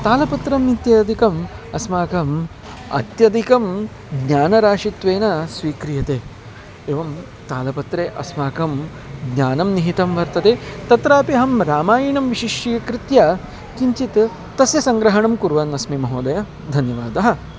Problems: constant background noise